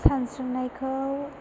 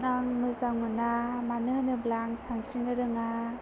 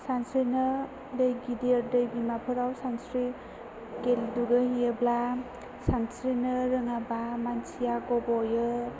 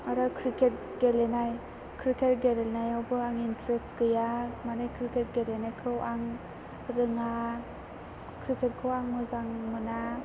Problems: constant background noise, low volume